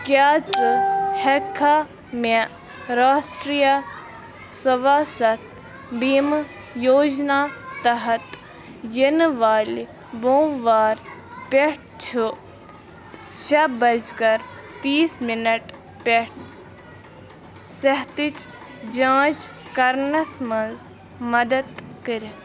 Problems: constant background noise